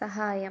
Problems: none marked